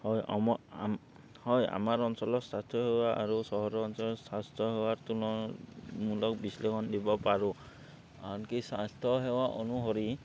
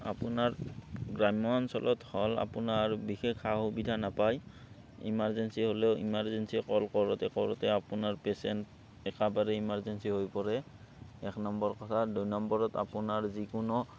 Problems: background sounds at intervals